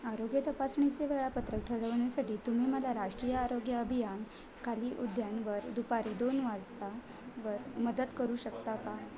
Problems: constant background noise, background conversations at intervals